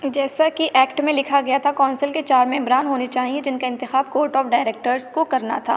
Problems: none marked